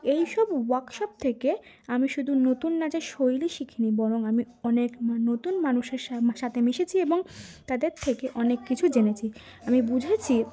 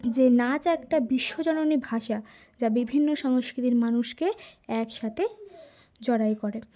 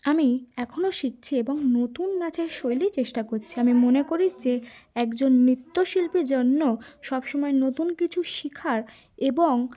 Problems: constant background noise